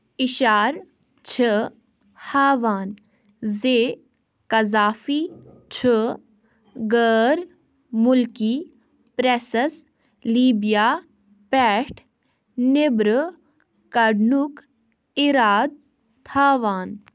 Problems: none marked